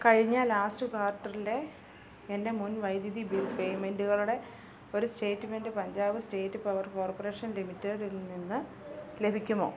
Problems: low volume